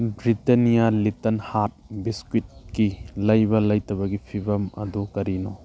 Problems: background sounds at intervals